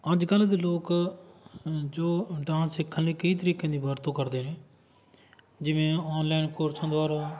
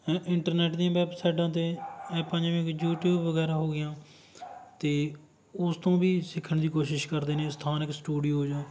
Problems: none marked